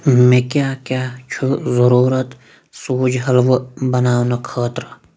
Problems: background sounds at intervals